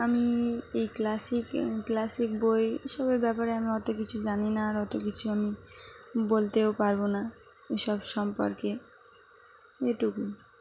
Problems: none marked